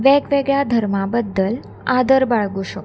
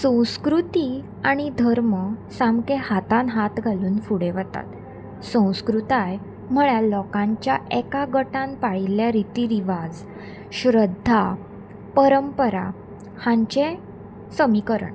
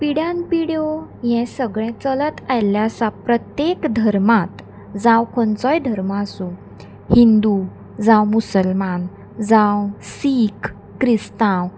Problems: constant background noise